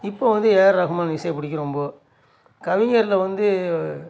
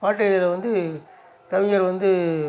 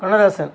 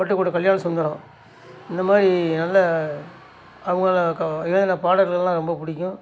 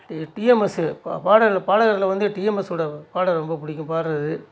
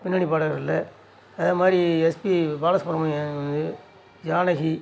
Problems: none marked